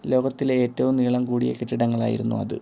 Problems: none marked